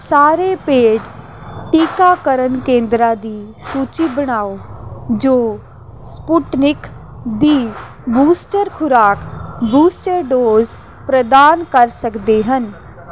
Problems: constant background noise, background conversations at intervals